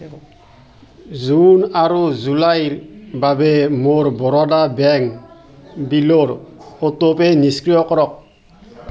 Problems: constant background noise, background conversations at intervals